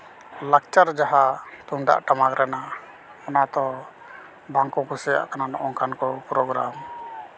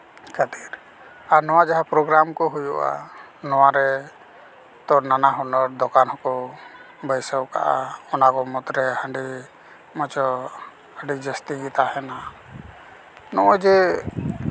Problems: background sounds at intervals, continuous background conversations